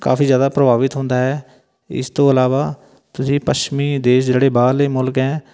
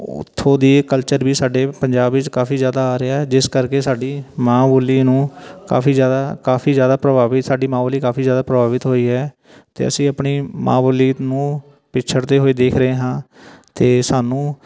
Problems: continuous background conversations